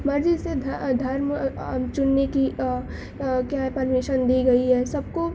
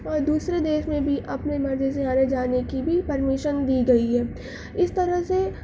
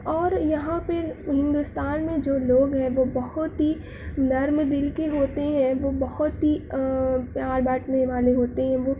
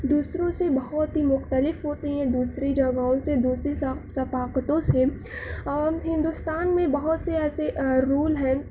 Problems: constant background noise